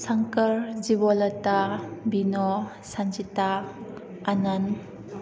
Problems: background conversations at intervals